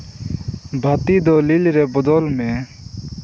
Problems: constant background noise